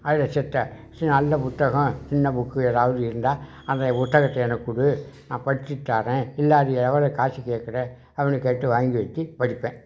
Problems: background conversations at intervals